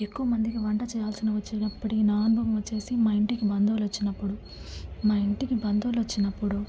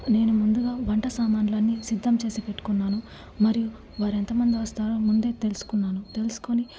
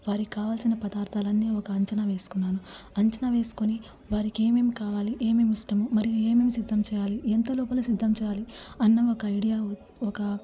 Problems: low volume